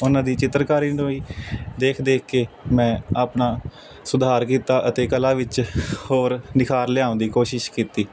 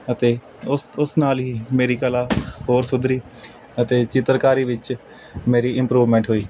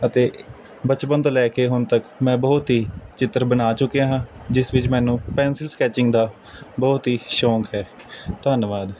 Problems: none marked